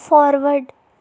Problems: constant background noise, low volume